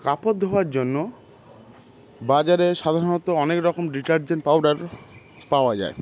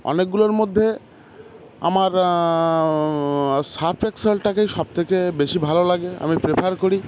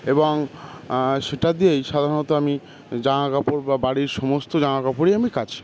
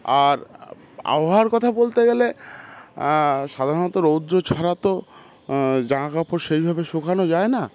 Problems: constant background noise, continuous background conversations